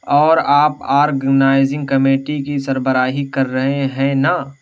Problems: constant background noise